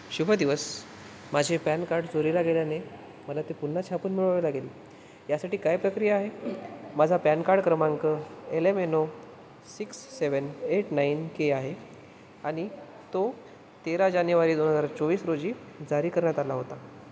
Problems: constant background noise